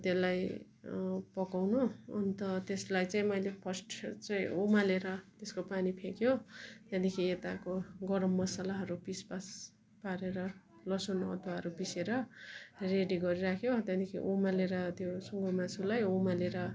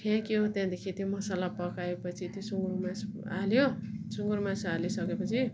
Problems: none marked